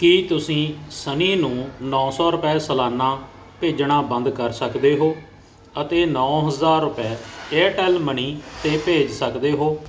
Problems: constant background noise